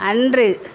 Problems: constant background noise